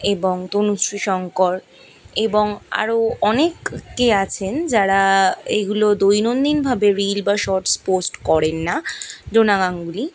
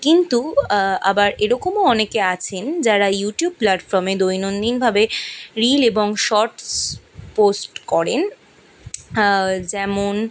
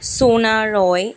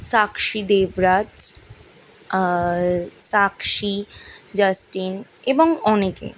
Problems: background sounds at intervals